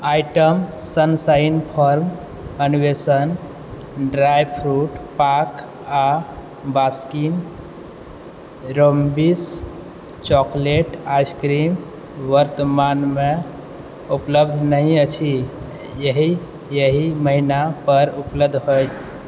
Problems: background sounds at intervals